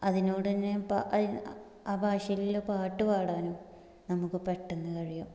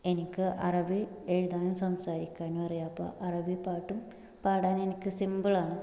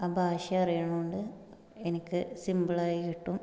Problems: low volume